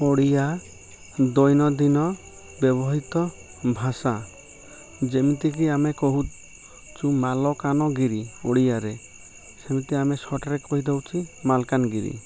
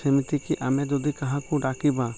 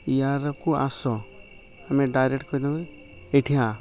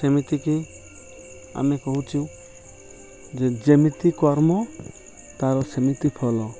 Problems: background sounds at intervals